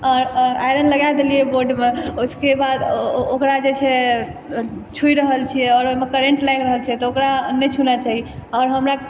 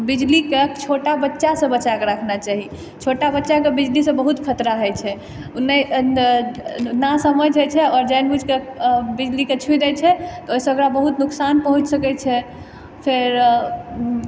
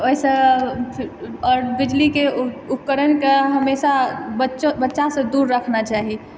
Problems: background conversations at intervals